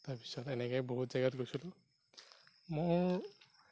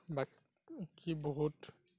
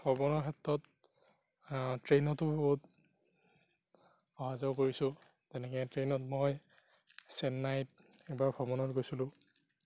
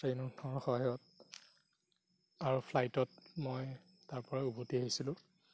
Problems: background sounds at intervals, low volume